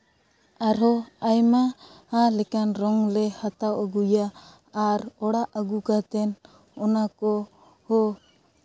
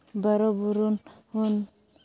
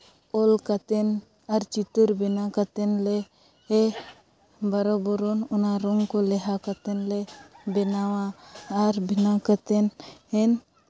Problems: none marked